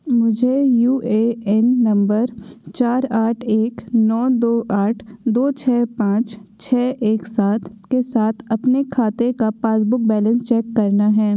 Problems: none marked